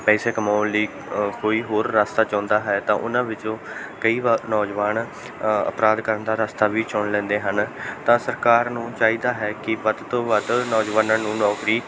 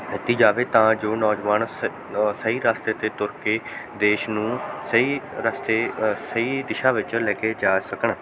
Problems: background sounds at intervals, background conversations at intervals